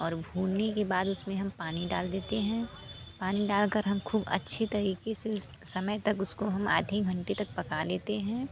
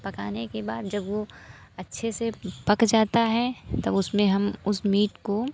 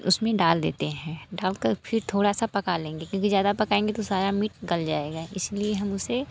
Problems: constant background noise